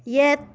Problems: background conversations at intervals